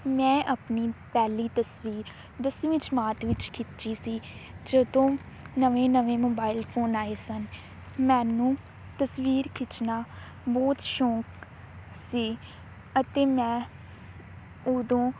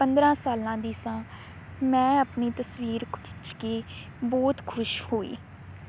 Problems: constant background noise